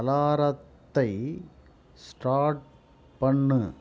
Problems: low volume